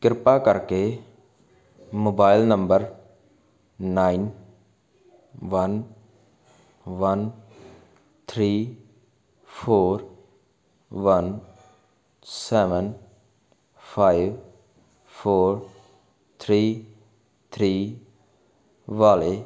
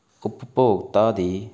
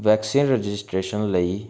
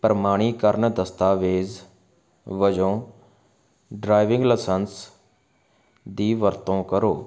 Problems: constant background noise